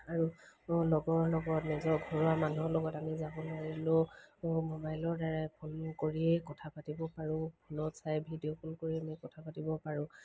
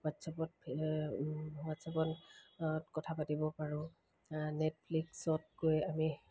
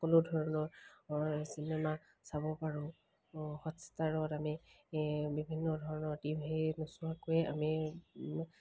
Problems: background sounds at intervals